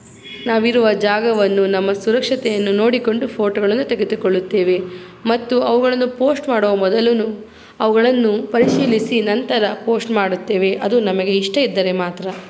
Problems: constant background noise